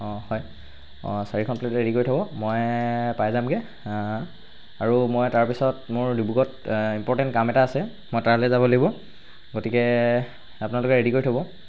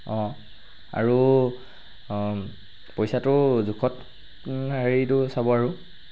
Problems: background sounds at intervals